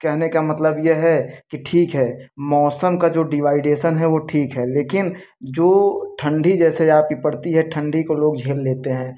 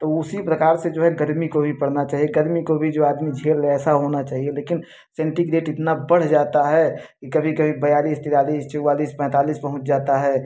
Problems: none marked